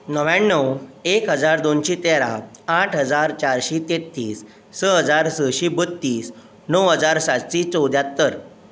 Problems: constant background noise